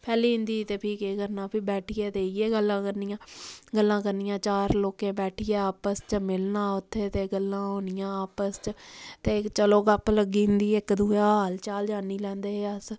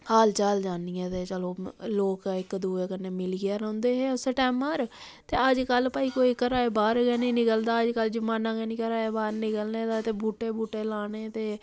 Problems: none marked